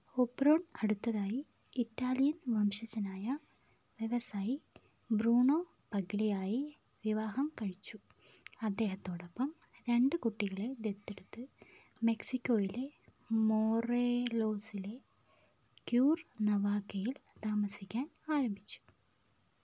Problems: none marked